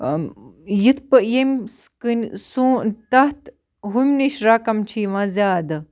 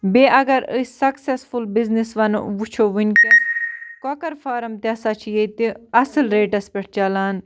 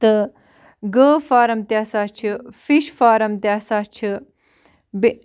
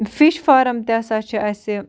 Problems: background sounds at intervals